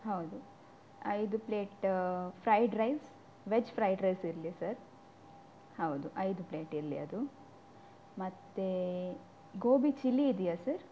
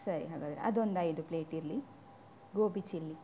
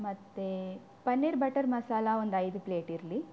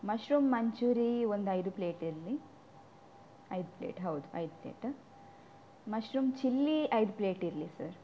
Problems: none marked